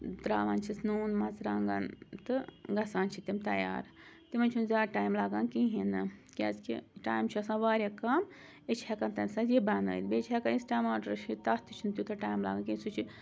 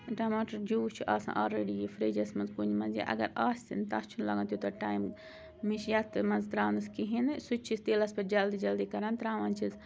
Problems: constant background noise